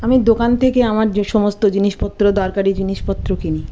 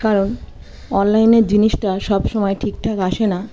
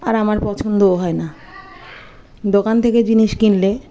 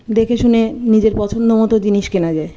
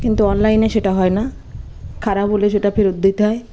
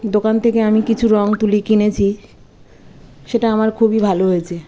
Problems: constant background noise, continuous background conversations